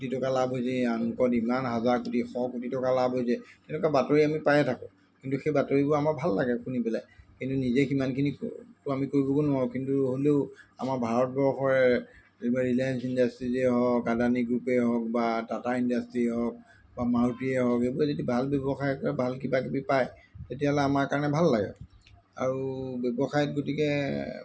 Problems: constant background noise